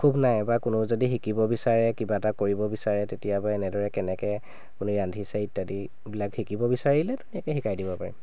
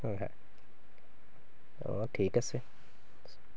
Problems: none marked